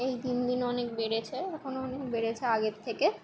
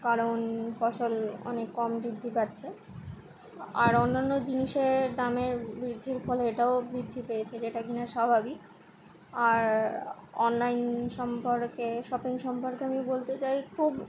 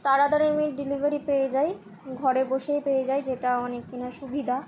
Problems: constant background noise, continuous background conversations